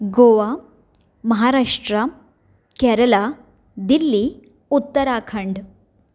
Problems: none marked